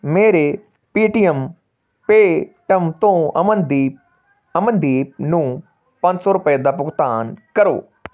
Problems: background sounds at intervals